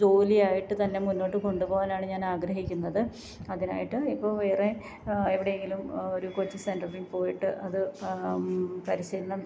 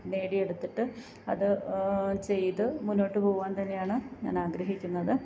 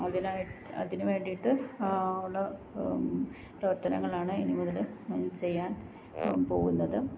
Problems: background sounds at intervals, low volume